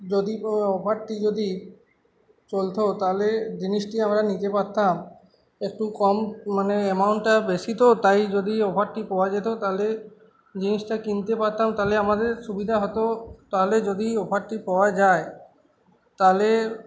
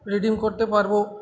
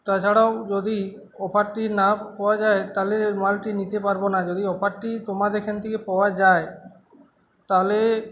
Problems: constant background noise